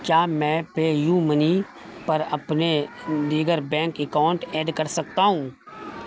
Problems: constant background noise